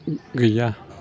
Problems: none marked